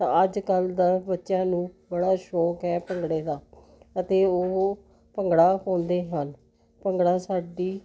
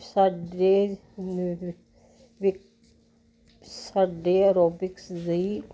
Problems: continuous background conversations